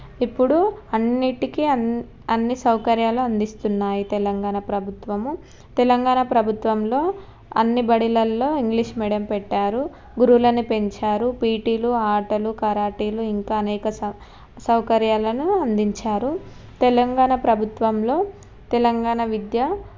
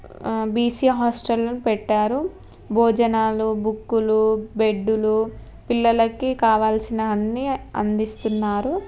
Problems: none marked